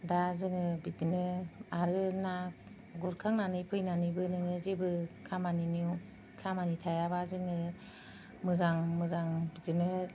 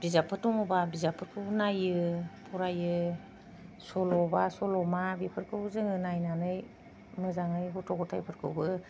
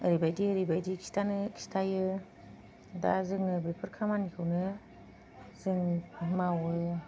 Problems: none marked